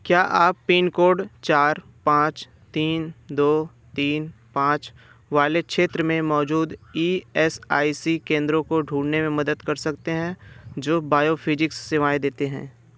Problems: none marked